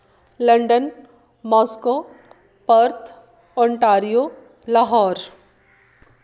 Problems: background sounds at intervals